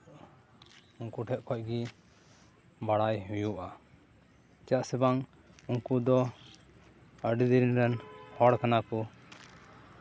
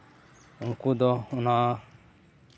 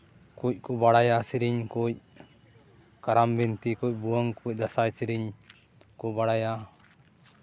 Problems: none marked